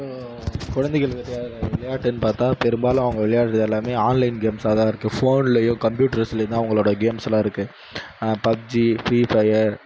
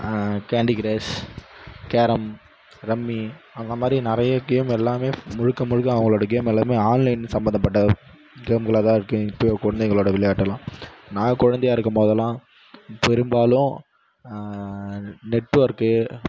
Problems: background sounds at intervals